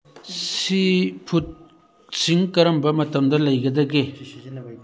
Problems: background conversations at intervals